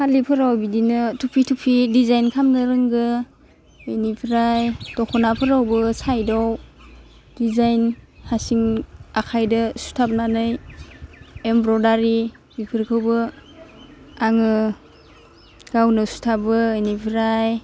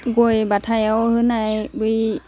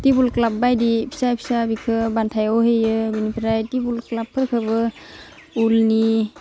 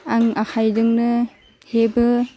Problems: constant background noise